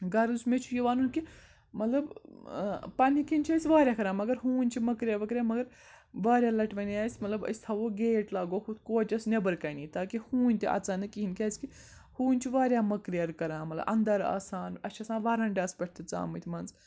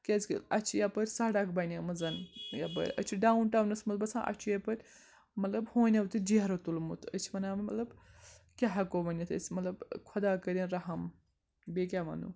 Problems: background sounds at intervals, background conversations at intervals